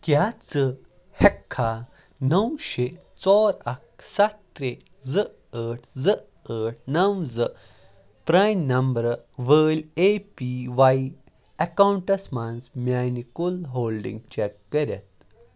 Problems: background sounds at intervals, background conversations at intervals